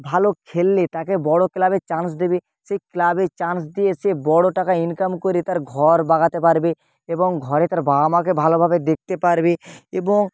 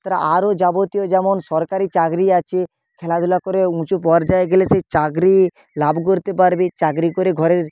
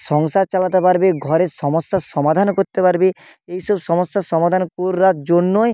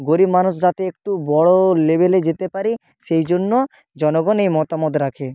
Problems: constant background noise